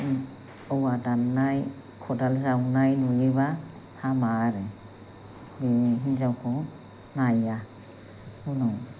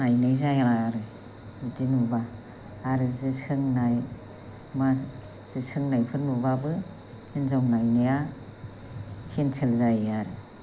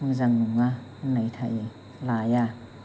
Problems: low volume